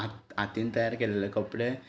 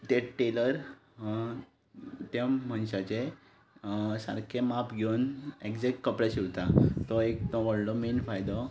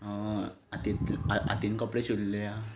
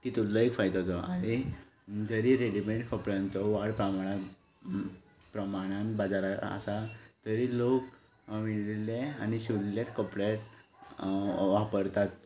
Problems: background sounds at intervals